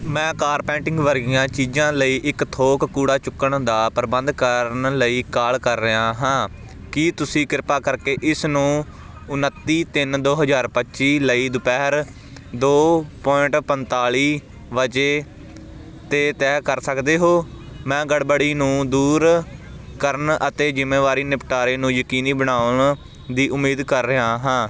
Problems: background sounds at intervals